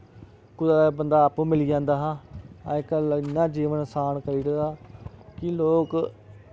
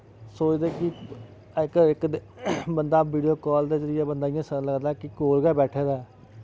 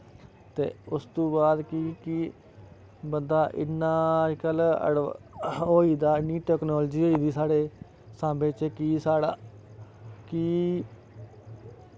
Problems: none marked